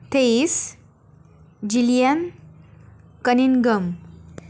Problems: none marked